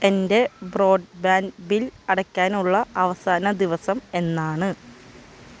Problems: none marked